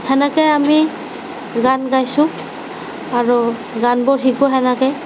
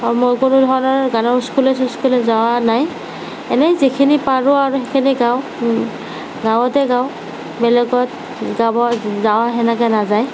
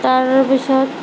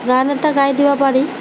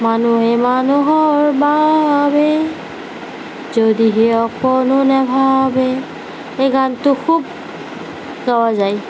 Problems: background sounds at intervals, low volume